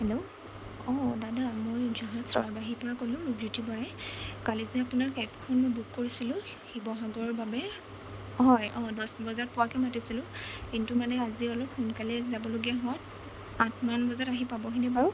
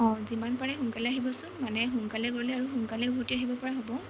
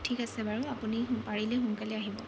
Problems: constant background noise, low volume